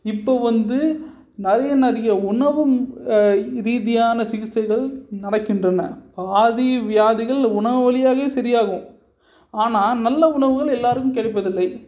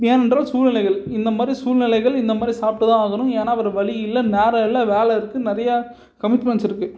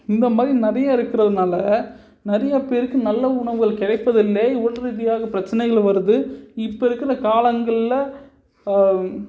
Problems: none marked